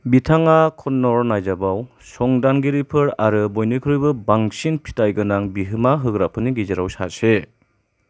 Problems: none marked